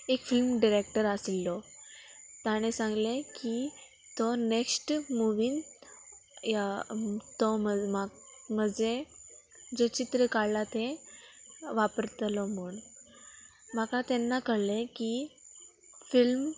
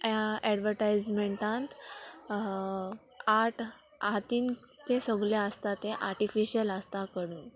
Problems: constant background noise